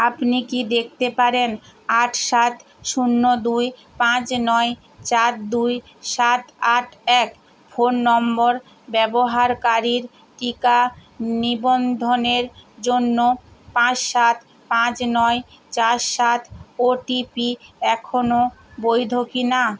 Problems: constant background noise